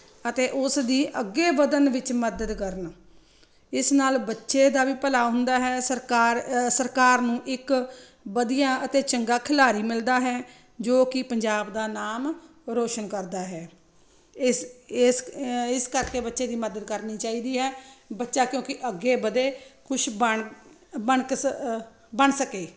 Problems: none marked